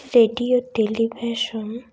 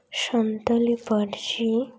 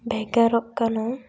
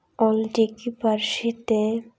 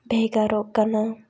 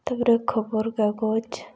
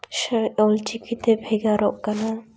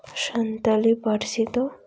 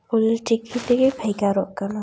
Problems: constant background noise, background conversations at intervals